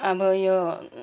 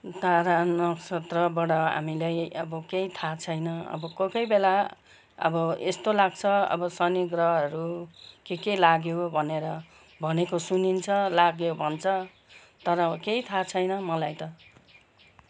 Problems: none marked